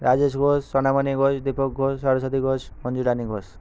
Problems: background sounds at intervals